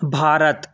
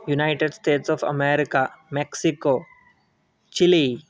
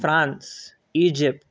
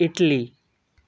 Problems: none marked